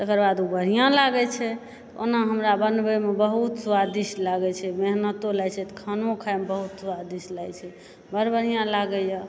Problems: background sounds at intervals, background conversations at intervals